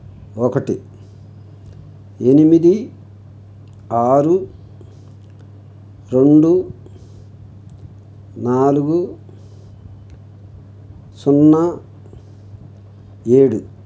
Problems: none marked